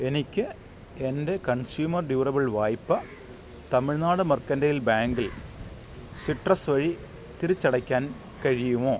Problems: none marked